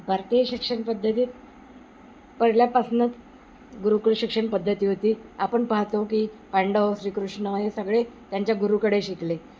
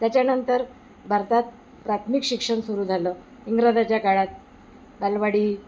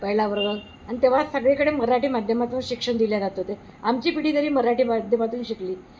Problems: none marked